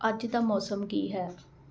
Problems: constant background noise